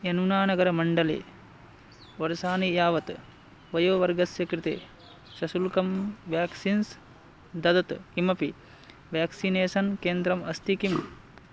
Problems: background sounds at intervals